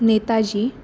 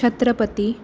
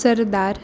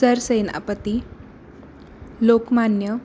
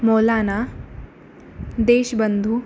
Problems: constant background noise